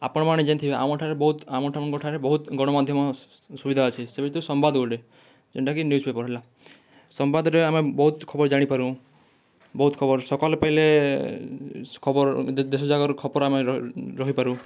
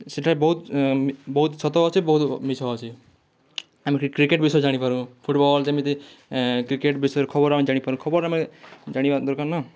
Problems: none marked